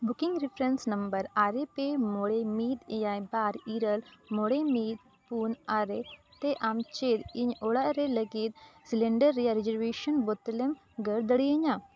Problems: background sounds at intervals